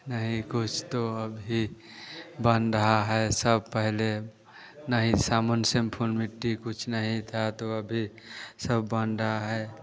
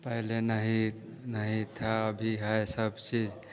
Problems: none marked